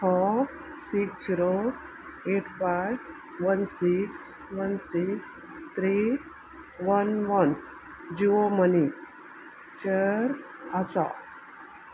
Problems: constant background noise